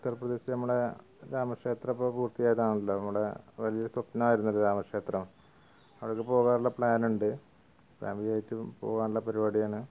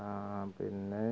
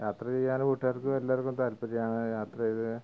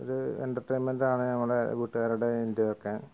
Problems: background sounds at intervals, background conversations at intervals